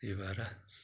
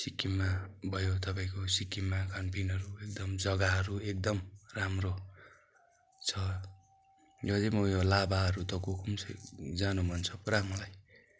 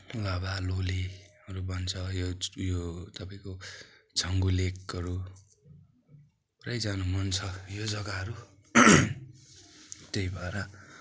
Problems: none marked